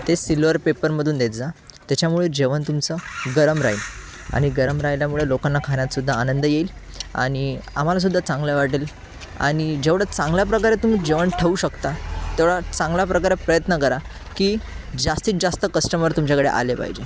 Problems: constant background noise